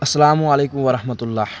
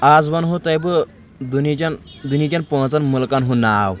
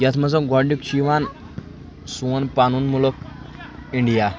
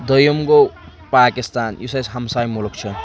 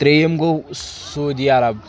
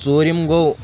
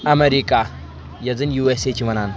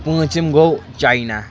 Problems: background sounds at intervals, background conversations at intervals